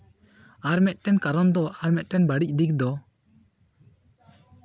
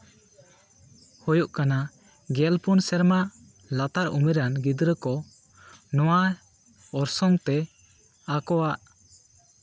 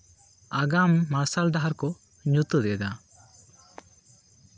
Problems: constant background noise, continuous background conversations